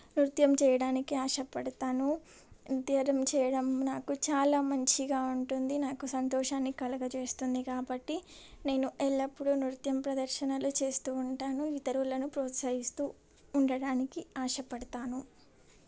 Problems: none marked